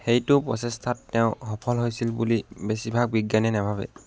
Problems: none marked